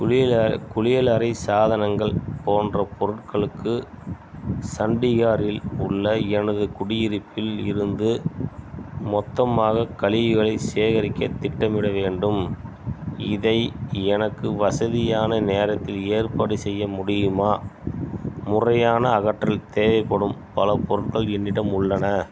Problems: none marked